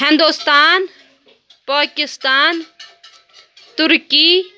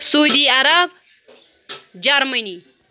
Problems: constant background noise